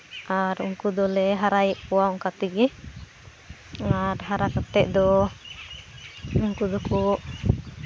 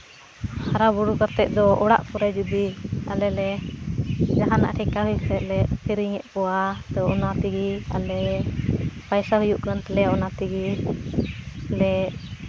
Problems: background sounds at intervals